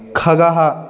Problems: continuous background conversations